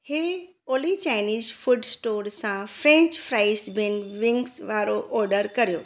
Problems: background sounds at intervals